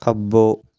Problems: none marked